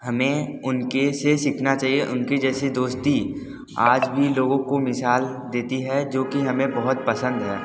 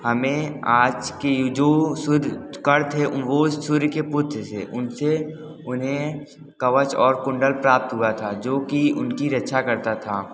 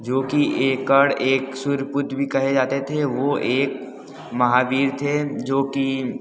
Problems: constant background noise